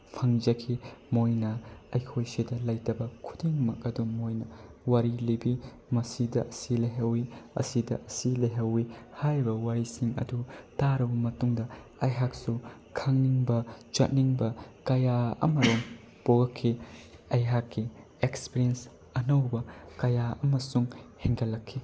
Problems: constant background noise